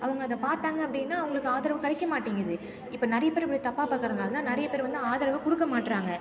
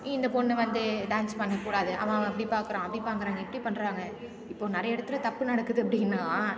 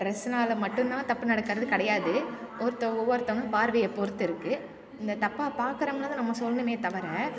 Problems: constant background noise